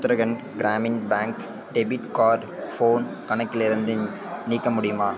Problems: background conversations at intervals